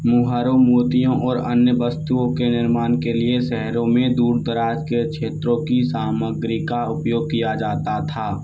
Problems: constant background noise